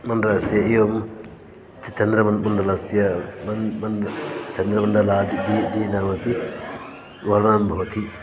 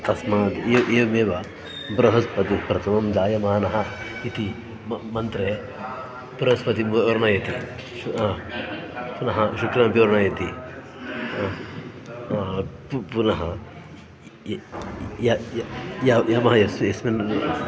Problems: constant background noise, continuous background conversations